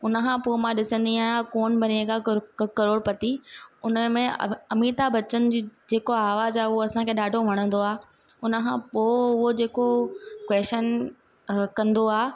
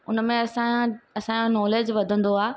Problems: constant background noise